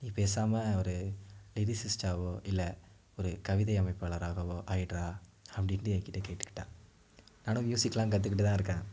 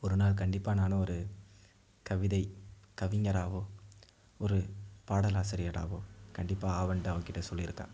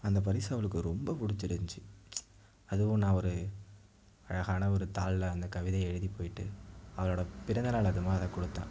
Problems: low volume